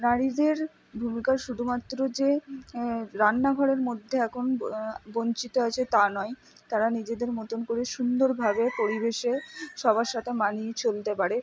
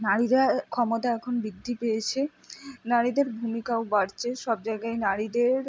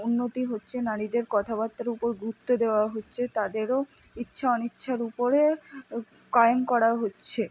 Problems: background sounds at intervals